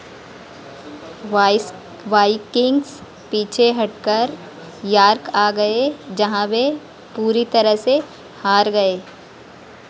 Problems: none marked